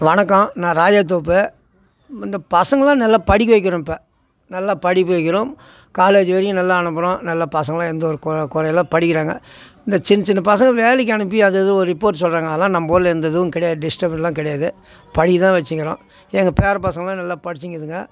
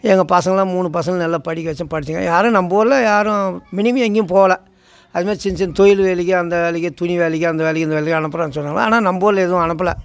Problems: constant background noise